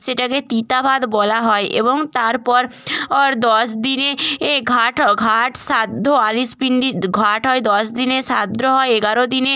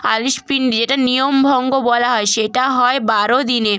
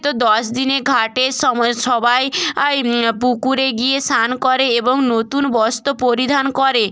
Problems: background sounds at intervals